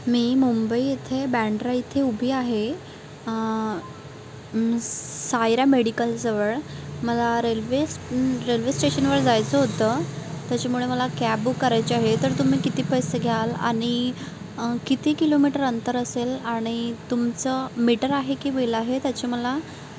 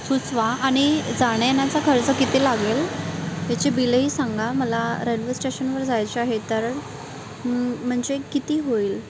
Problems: constant background noise